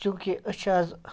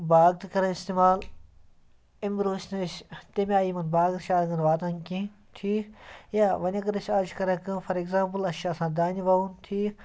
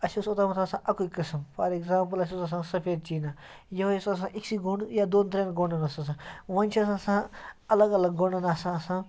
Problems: background sounds at intervals